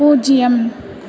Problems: continuous background conversations